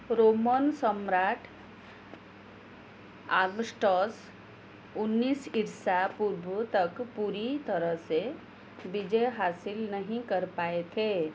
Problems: constant background noise